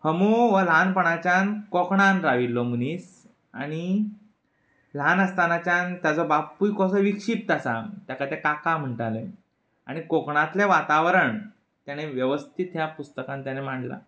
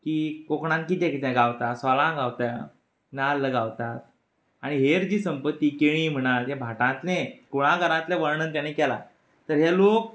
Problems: background sounds at intervals